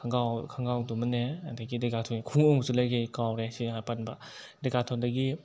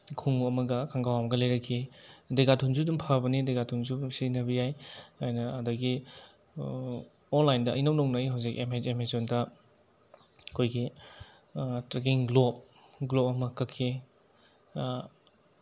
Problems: none marked